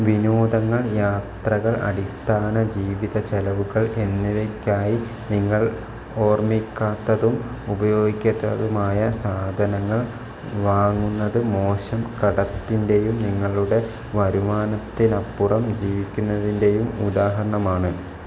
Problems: constant background noise